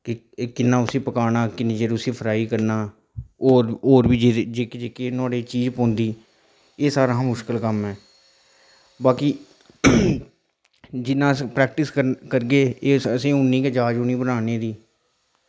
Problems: none marked